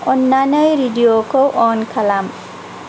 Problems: constant background noise